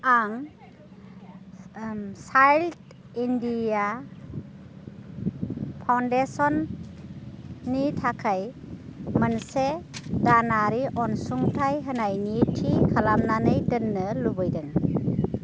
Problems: constant background noise